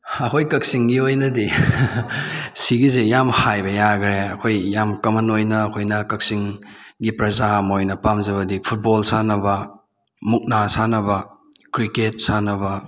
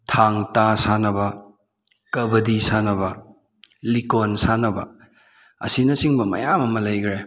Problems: none marked